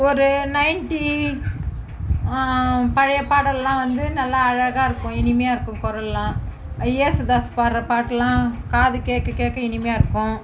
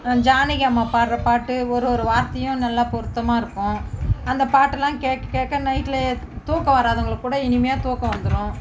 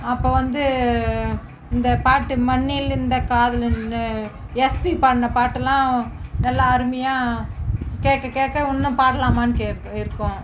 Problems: background sounds at intervals